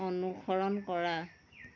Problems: none marked